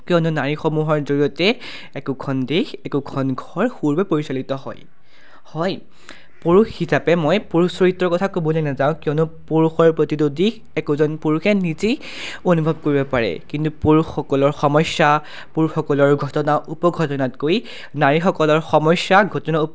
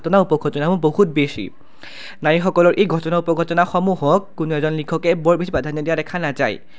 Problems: none marked